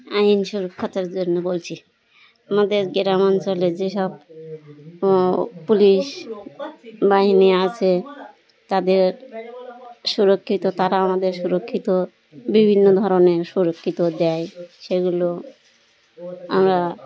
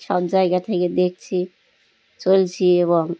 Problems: constant background noise, continuous background conversations